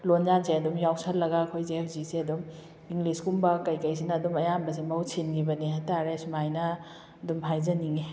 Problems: none marked